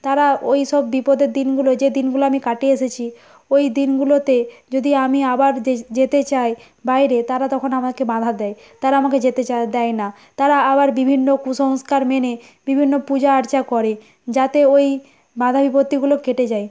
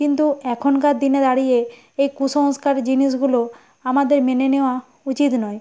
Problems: constant background noise